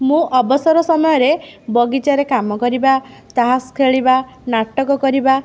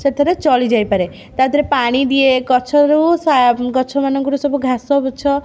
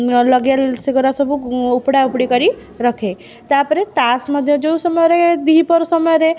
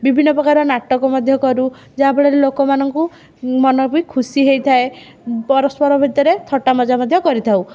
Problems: none marked